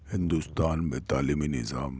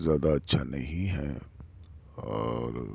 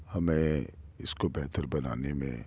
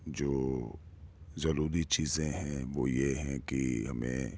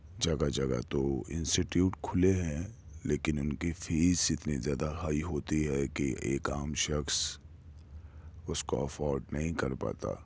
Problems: none marked